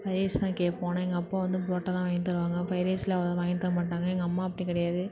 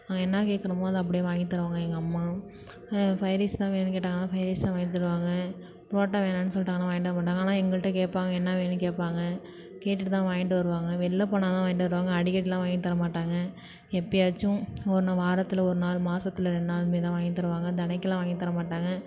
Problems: none marked